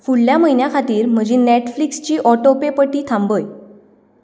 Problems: background sounds at intervals